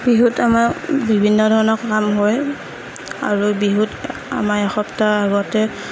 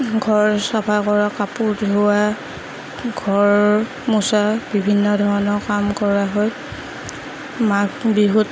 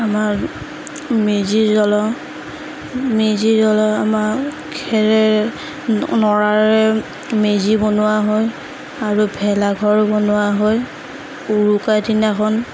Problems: none marked